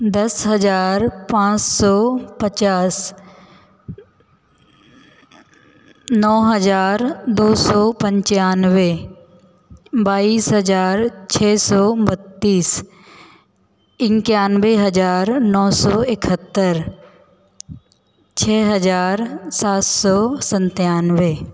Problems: none marked